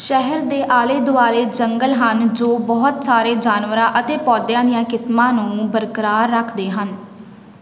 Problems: background sounds at intervals